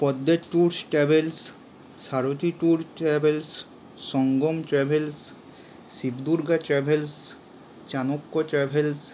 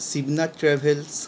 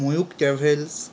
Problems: constant background noise